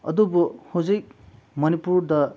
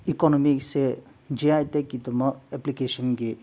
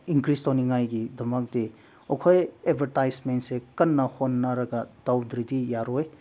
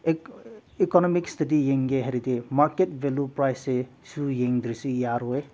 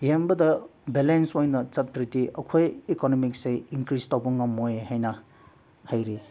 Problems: background sounds at intervals